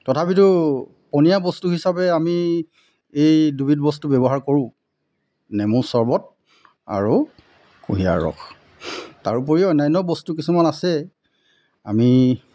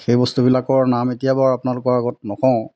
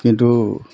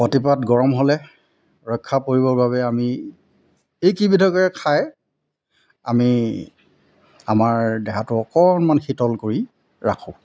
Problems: constant background noise